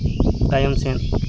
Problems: constant background noise